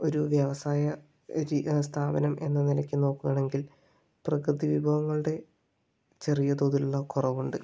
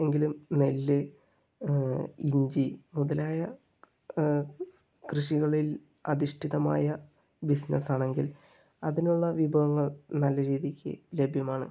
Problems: low volume